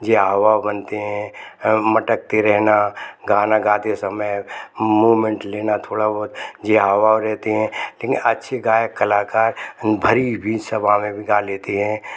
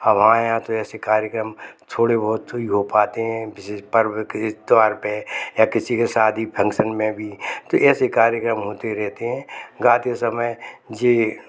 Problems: constant background noise, background conversations at intervals